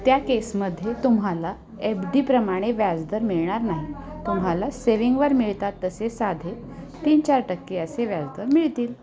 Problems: constant background noise, continuous background conversations